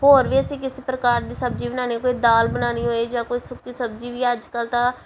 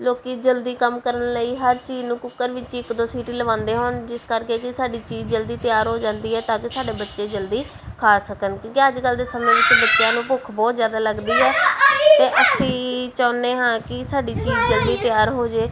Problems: background sounds at intervals, background conversations at intervals